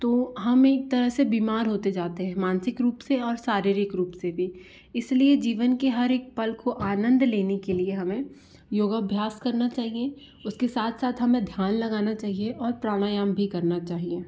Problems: background sounds at intervals